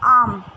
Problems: constant background noise